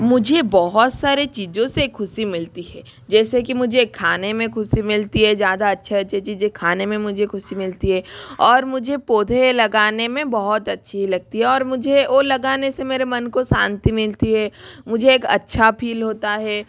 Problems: constant background noise